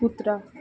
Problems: background sounds at intervals